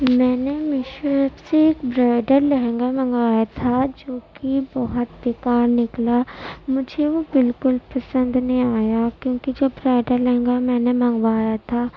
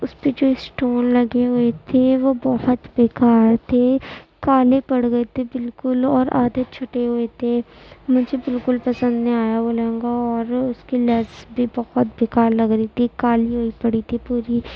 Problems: constant background noise, low volume